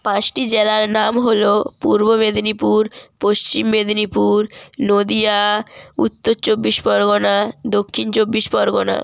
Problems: none marked